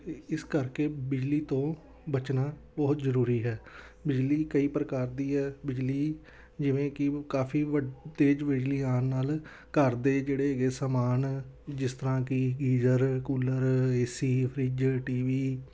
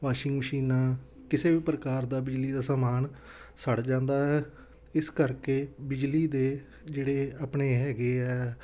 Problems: background conversations at intervals